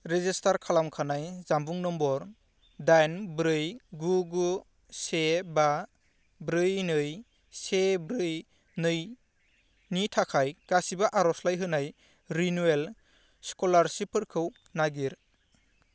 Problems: none marked